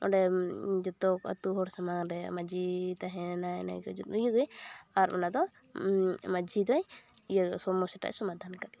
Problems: none marked